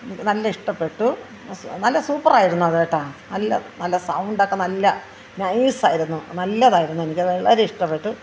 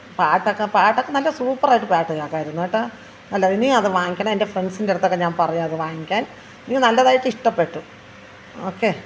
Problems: background conversations at intervals